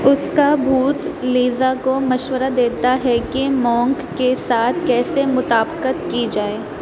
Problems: constant background noise